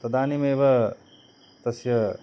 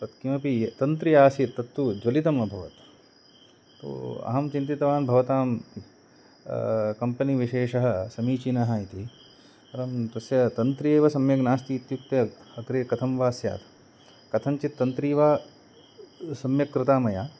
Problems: none marked